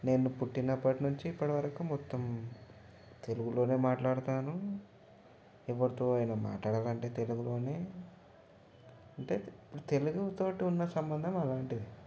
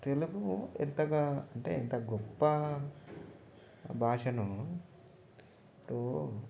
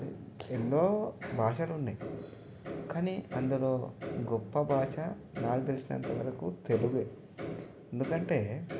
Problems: background sounds at intervals, low volume